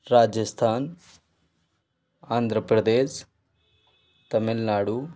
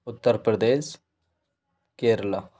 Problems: none marked